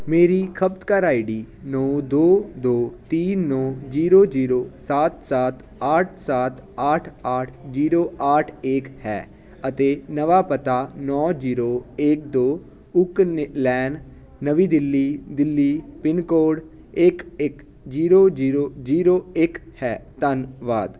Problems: constant background noise